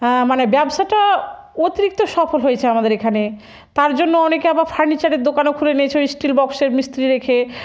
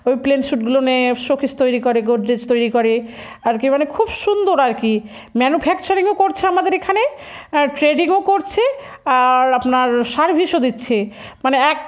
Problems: none marked